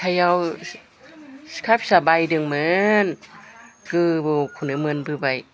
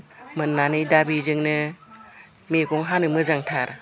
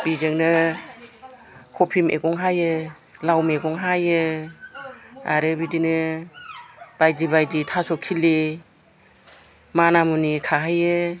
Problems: background conversations at intervals